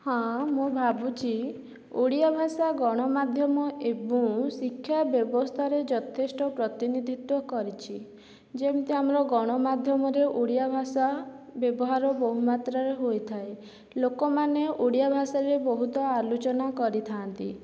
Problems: none marked